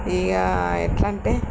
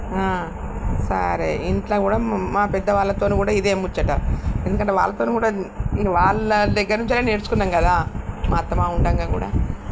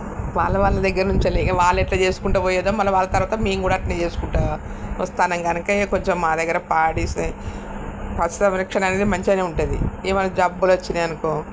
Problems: constant background noise